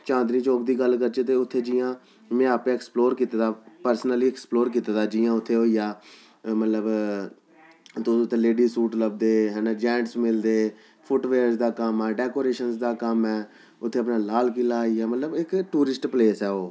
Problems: none marked